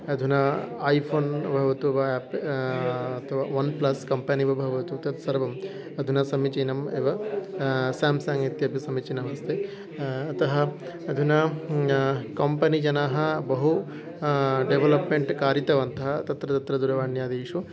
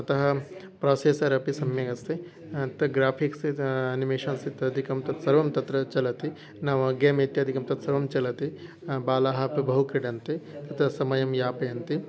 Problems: continuous background conversations